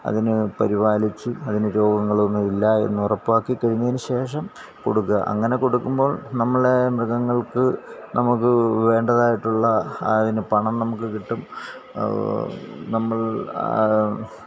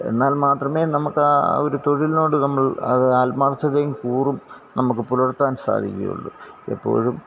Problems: constant background noise